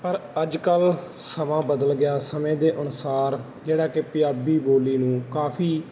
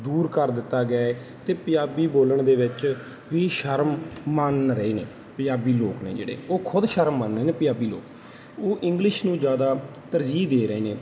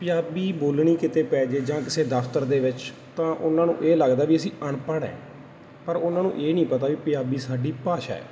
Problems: none marked